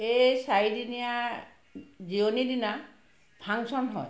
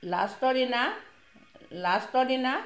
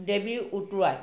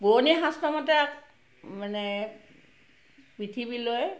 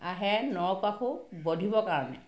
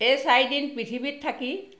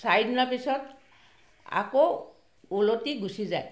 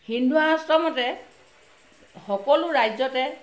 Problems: constant background noise, background conversations at intervals